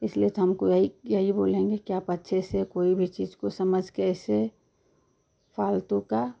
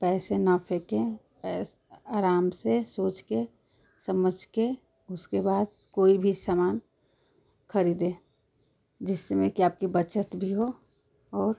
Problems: constant background noise